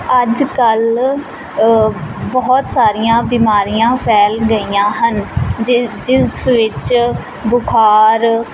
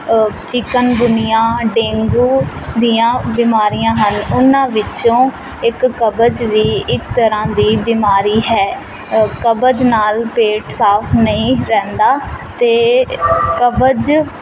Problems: constant background noise